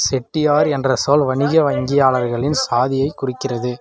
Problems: background conversations at intervals